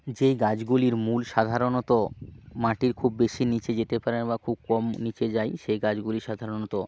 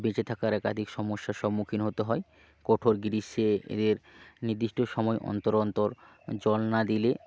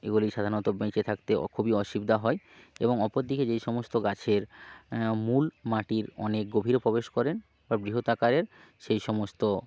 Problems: constant background noise